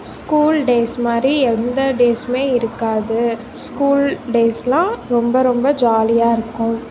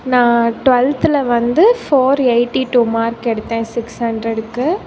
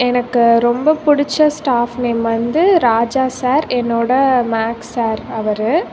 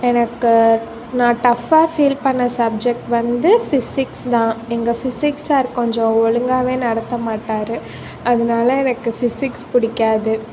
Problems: constant background noise